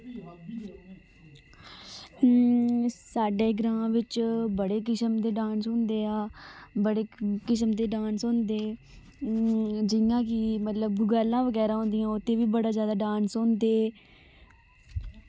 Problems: none marked